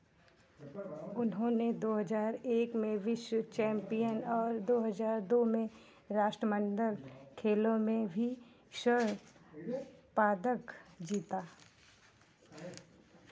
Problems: none marked